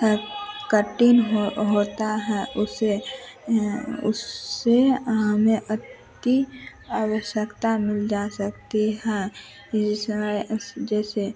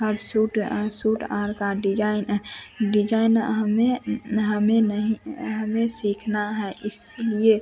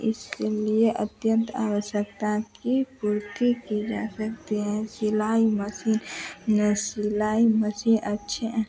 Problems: constant background noise